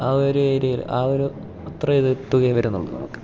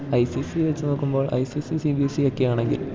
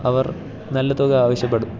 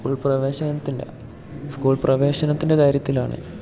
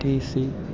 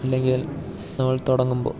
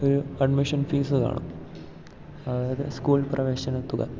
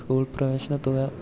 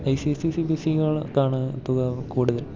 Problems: background sounds at intervals